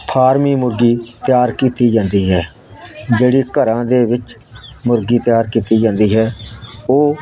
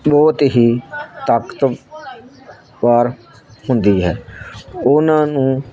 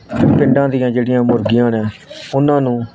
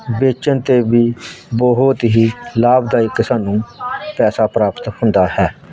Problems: constant background noise